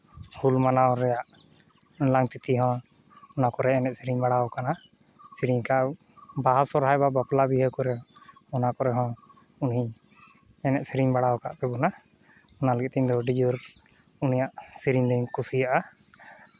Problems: constant background noise